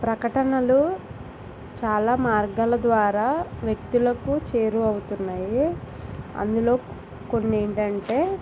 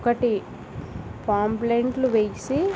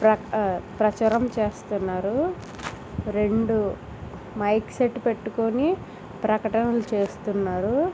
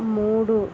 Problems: constant background noise